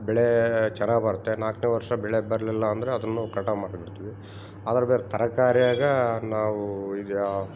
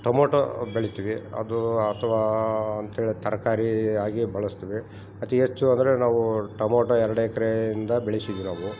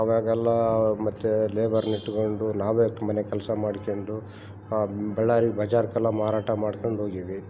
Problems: background sounds at intervals